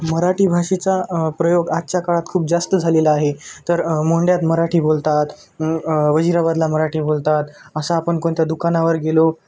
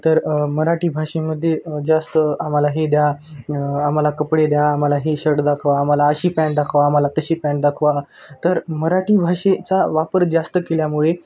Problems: constant background noise